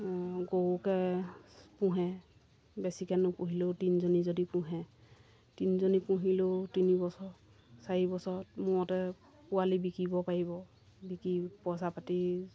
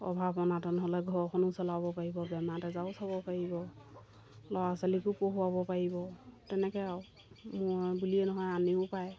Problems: none marked